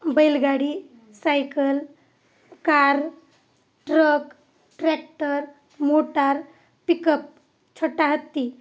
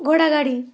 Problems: none marked